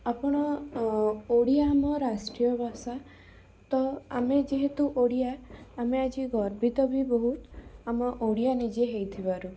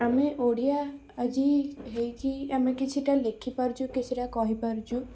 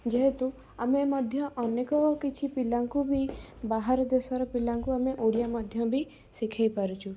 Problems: background sounds at intervals